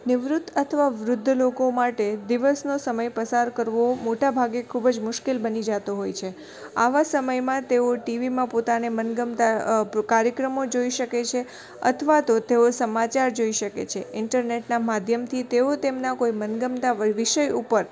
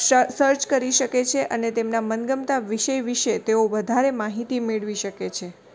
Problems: constant background noise